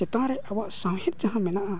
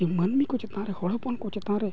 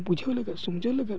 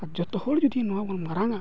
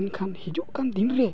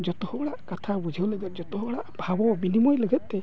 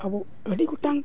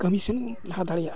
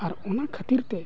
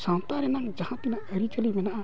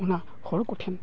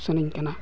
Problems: none marked